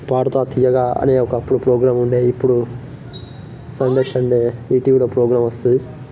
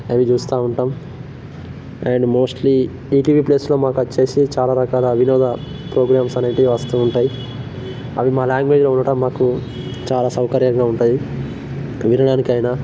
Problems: constant background noise